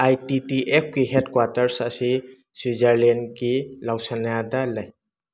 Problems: background sounds at intervals